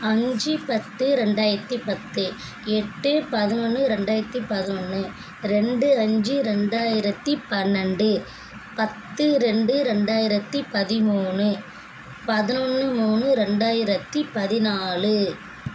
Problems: constant background noise